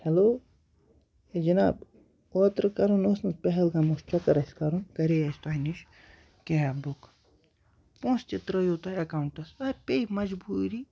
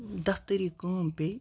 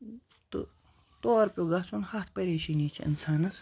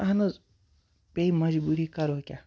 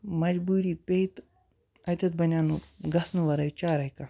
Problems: background sounds at intervals